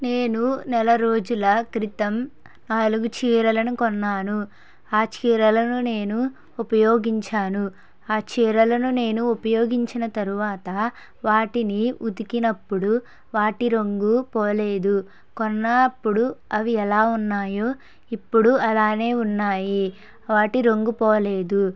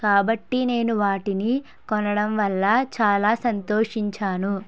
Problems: none marked